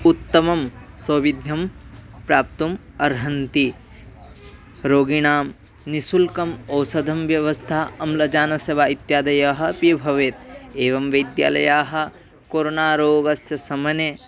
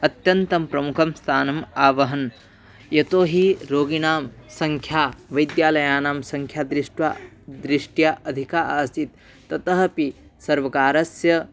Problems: constant background noise, background conversations at intervals